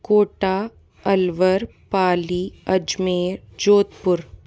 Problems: none marked